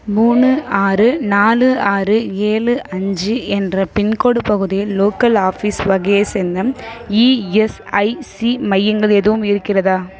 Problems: background sounds at intervals